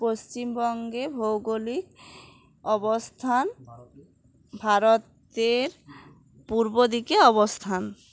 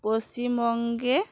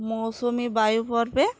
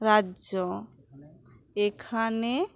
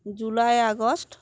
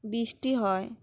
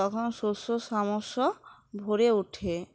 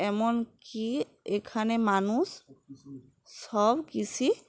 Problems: background sounds at intervals, background conversations at intervals